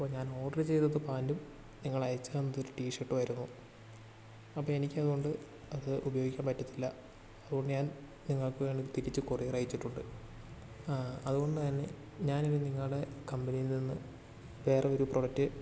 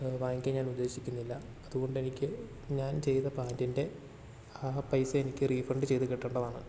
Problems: constant background noise, low volume